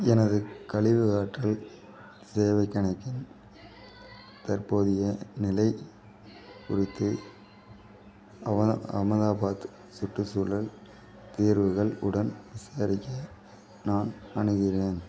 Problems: none marked